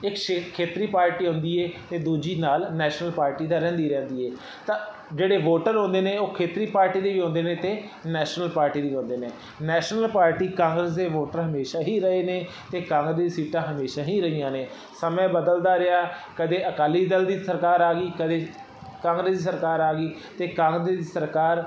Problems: constant background noise